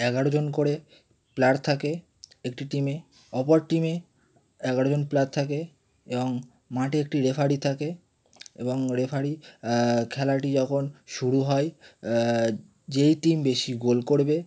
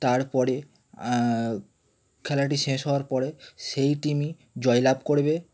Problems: none marked